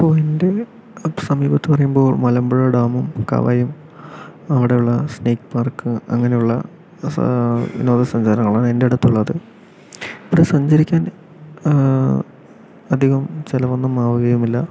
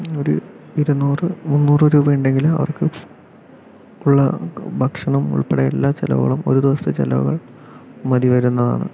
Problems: none marked